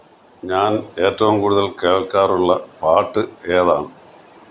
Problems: none marked